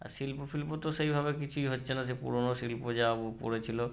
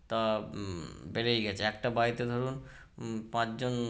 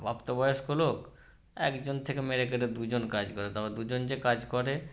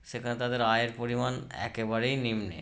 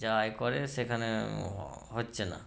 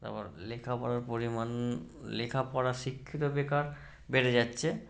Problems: none marked